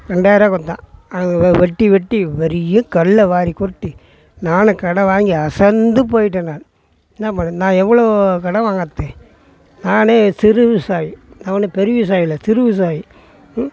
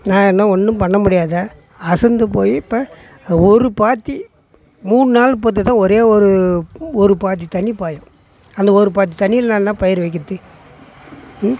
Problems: background sounds at intervals, background conversations at intervals